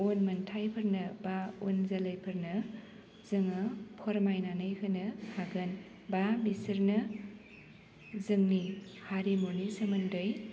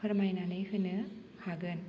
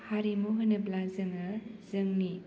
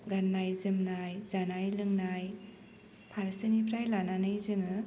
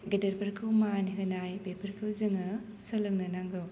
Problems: low volume